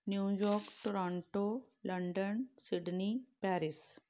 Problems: background sounds at intervals